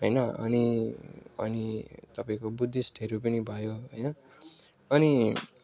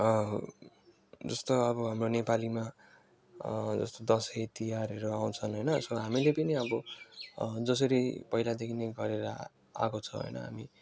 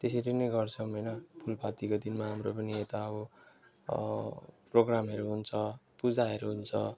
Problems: none marked